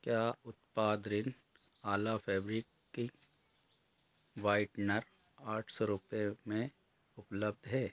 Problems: none marked